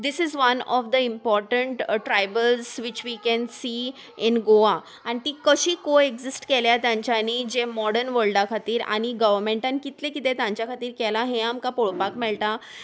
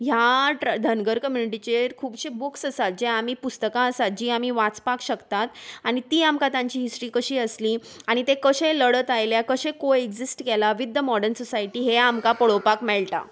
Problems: none marked